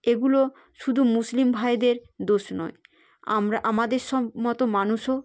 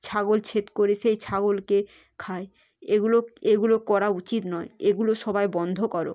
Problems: none marked